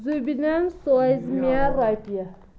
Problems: background sounds at intervals, background conversations at intervals